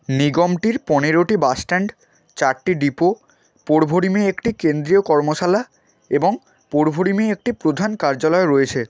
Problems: constant background noise